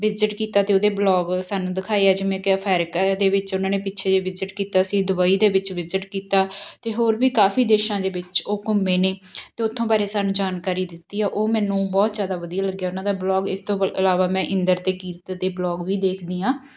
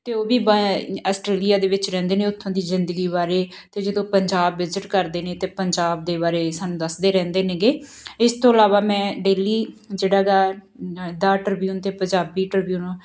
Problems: background sounds at intervals